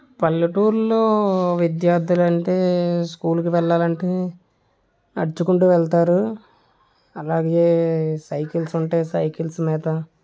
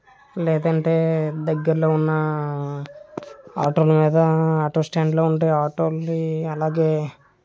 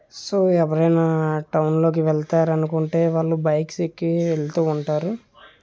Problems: none marked